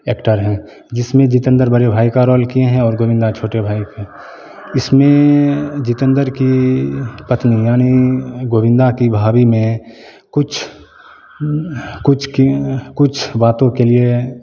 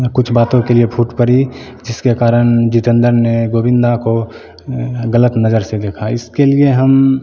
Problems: constant background noise, continuous background conversations